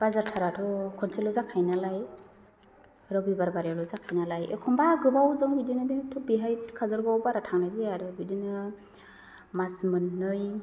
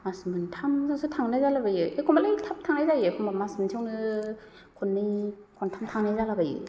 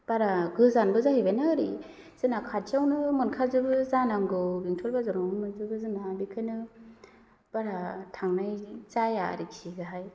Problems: none marked